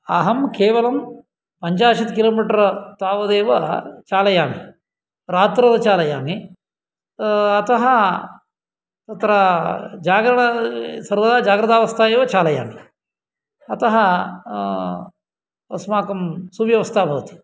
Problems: none marked